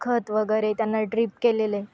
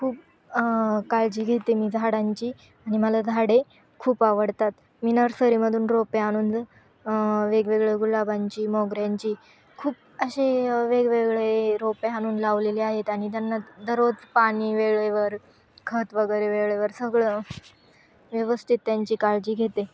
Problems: constant background noise, continuous background conversations